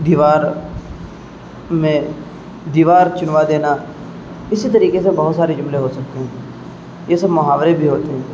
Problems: constant background noise